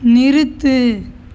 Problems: none marked